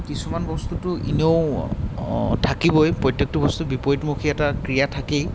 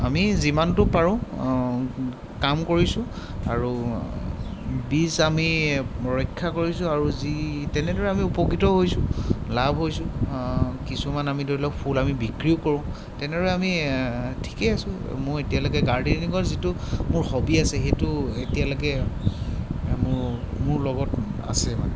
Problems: constant background noise